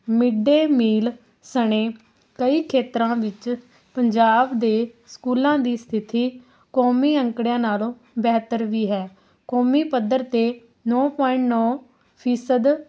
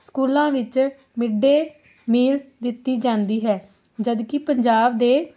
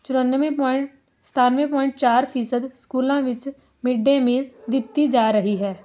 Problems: constant background noise